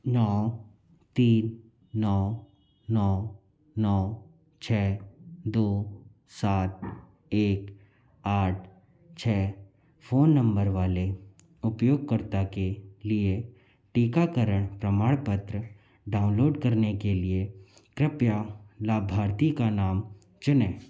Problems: background sounds at intervals